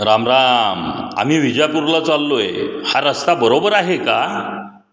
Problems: none marked